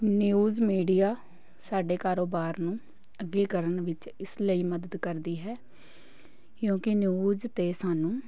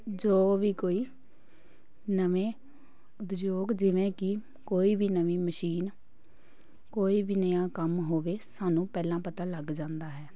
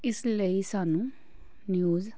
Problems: none marked